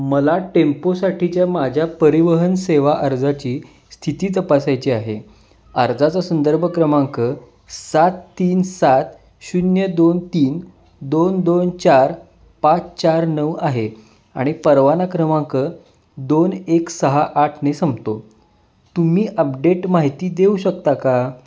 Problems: background sounds at intervals